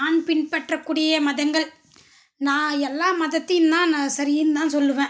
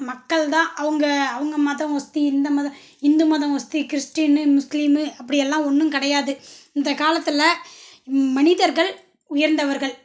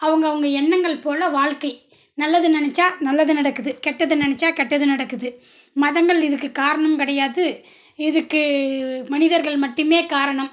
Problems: none marked